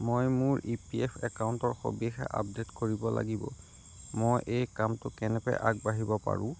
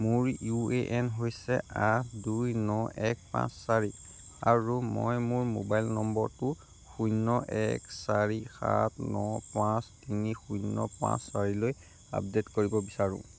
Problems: none marked